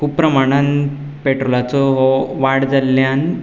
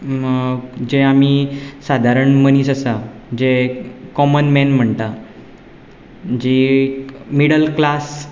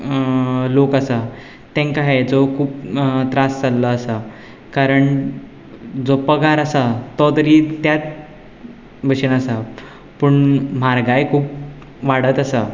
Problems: none marked